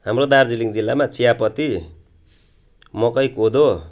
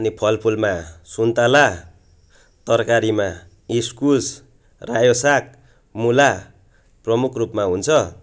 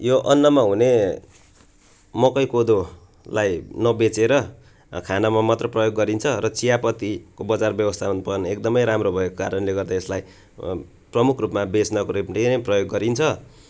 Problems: none marked